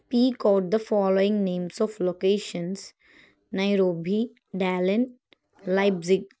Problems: none marked